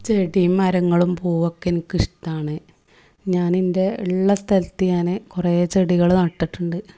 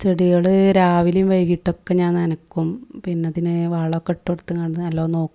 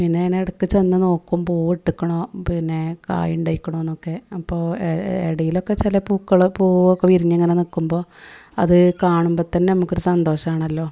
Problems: none marked